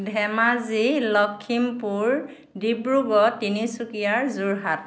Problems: background sounds at intervals